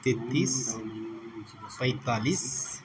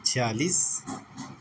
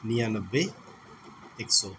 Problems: constant background noise